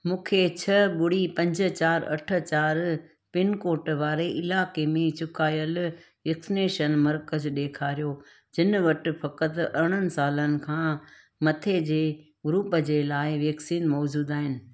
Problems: none marked